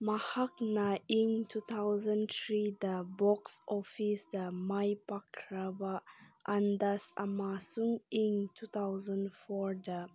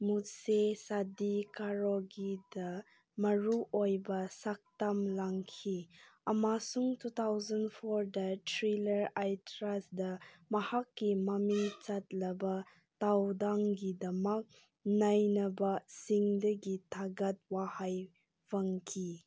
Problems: none marked